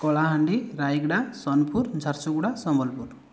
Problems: none marked